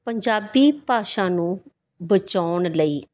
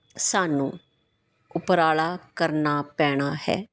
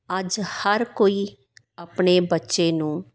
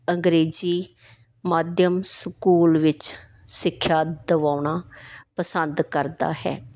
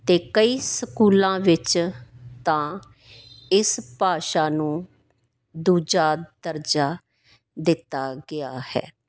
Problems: background sounds at intervals